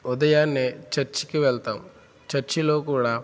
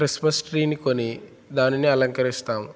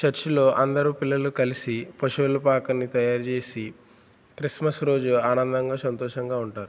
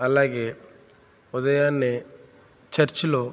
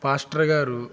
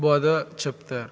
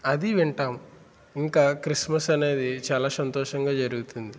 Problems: constant background noise